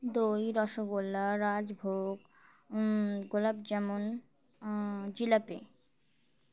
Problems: background sounds at intervals